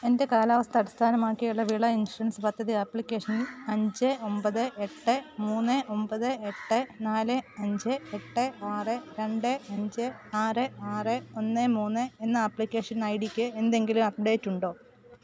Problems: background sounds at intervals